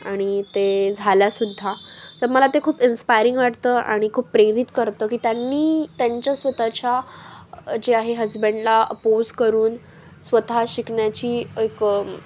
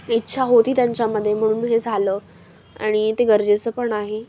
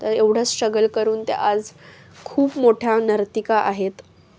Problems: none marked